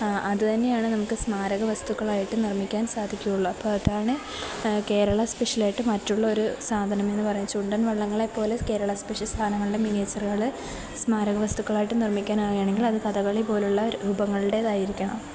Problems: none marked